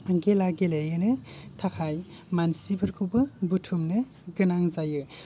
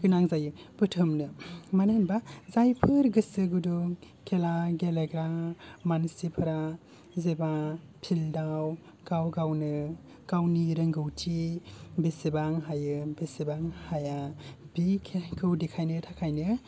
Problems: low volume